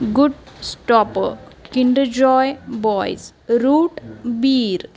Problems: none marked